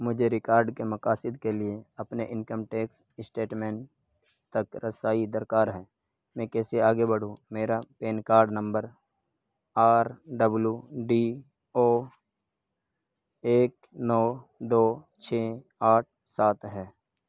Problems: none marked